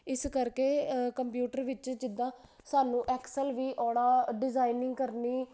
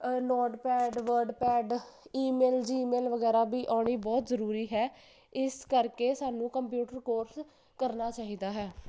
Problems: constant background noise